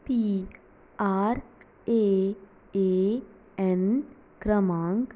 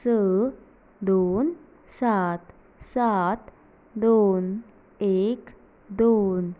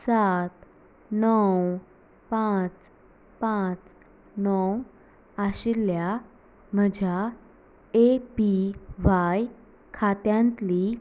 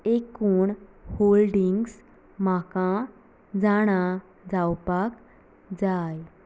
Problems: background sounds at intervals